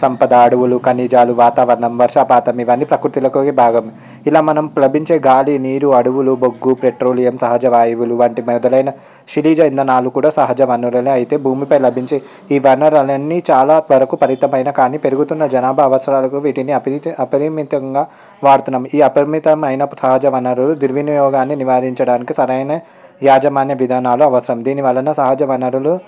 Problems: background sounds at intervals, background conversations at intervals